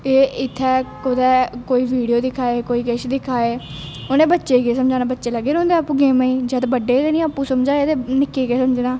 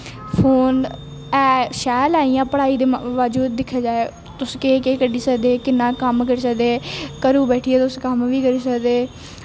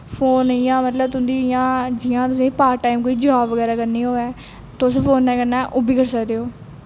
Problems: none marked